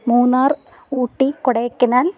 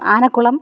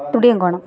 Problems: background conversations at intervals